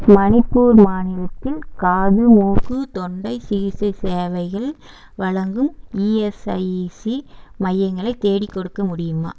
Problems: background sounds at intervals